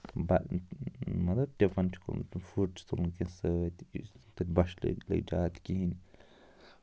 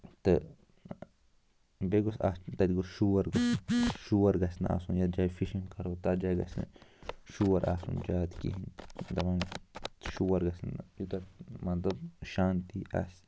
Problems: constant background noise